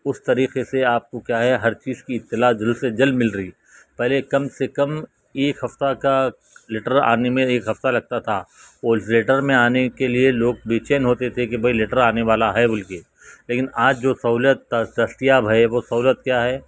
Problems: constant background noise